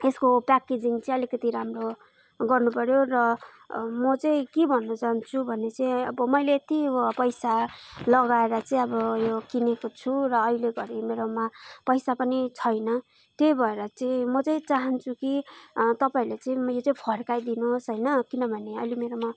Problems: none marked